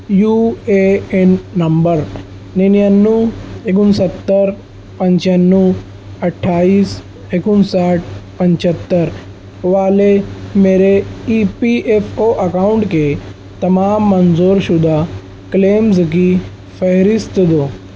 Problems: constant background noise